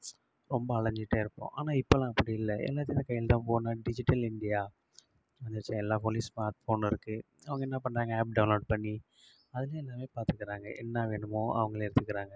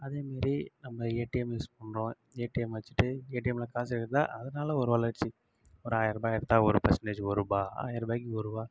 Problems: low volume